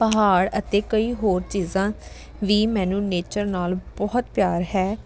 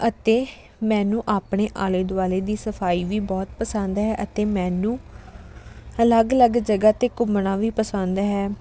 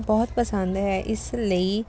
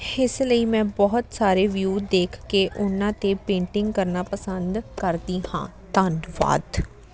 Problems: none marked